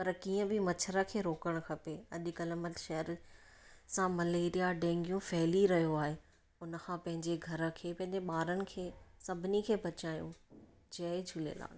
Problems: none marked